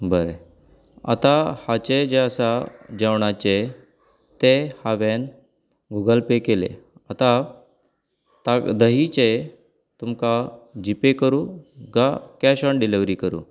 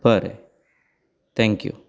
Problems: none marked